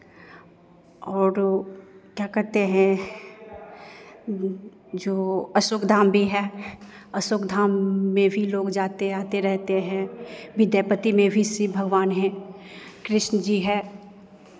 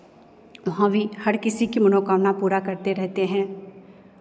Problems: constant background noise, background conversations at intervals